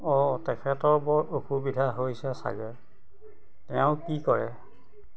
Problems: background sounds at intervals, background conversations at intervals